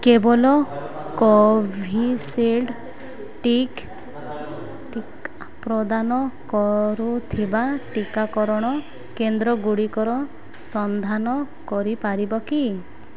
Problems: constant background noise